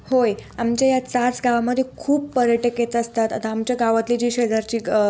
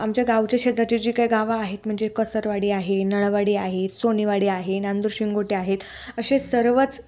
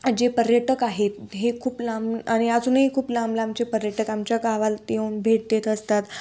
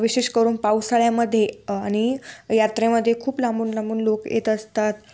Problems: constant background noise